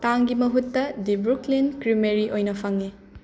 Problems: constant background noise, background conversations at intervals